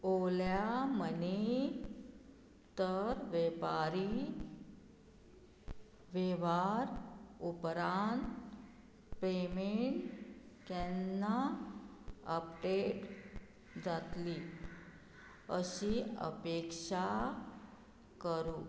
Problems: none marked